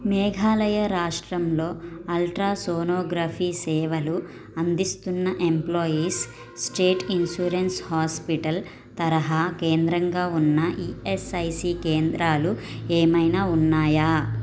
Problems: none marked